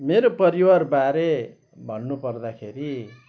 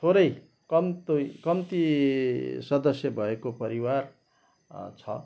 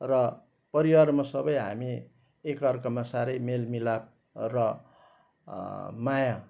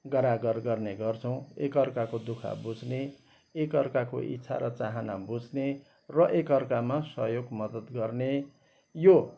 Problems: background sounds at intervals